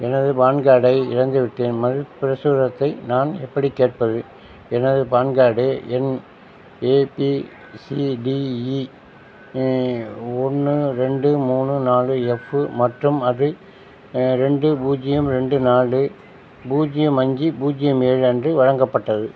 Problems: constant background noise